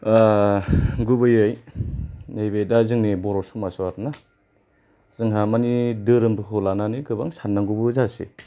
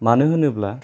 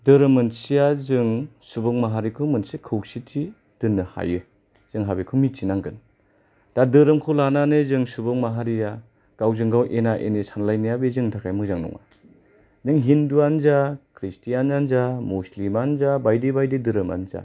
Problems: low volume